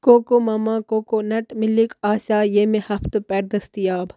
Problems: background sounds at intervals